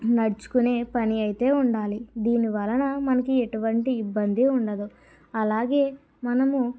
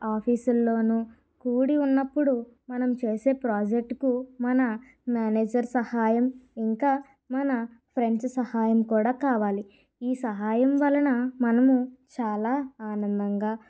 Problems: none marked